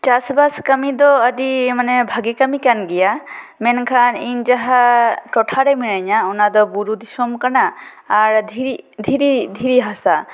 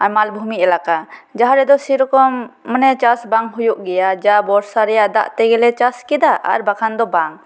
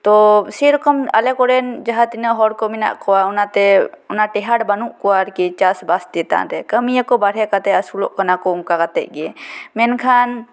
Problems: none marked